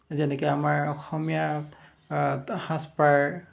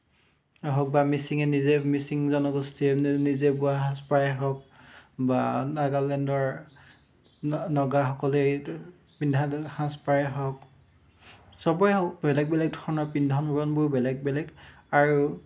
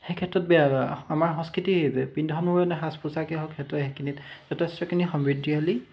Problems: constant background noise